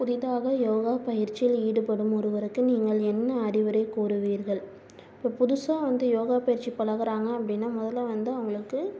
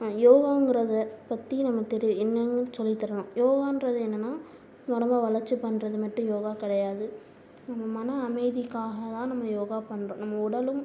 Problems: low volume